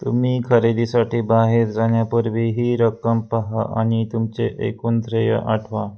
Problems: none marked